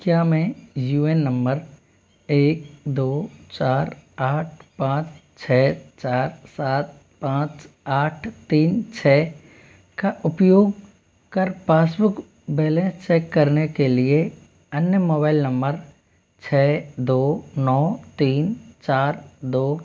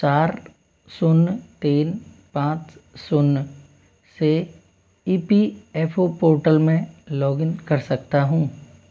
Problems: constant background noise